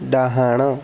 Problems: constant background noise